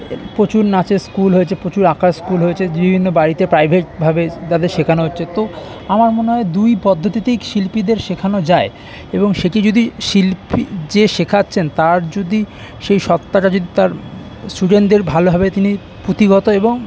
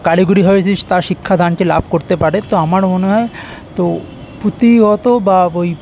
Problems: none marked